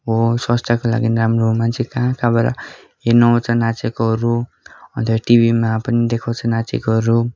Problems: constant background noise, continuous background conversations